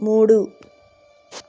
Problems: constant background noise